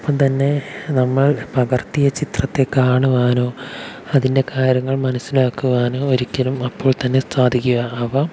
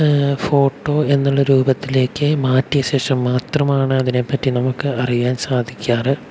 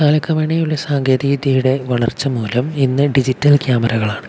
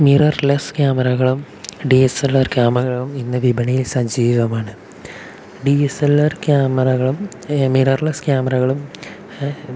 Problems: constant background noise, low volume